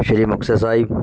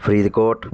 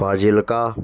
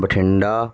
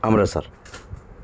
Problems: constant background noise